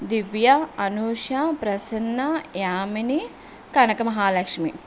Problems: constant background noise